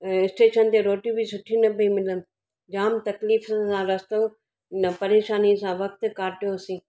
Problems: none marked